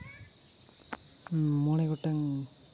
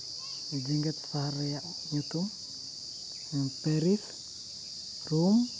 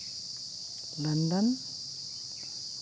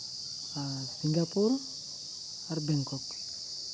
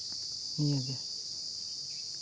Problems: constant background noise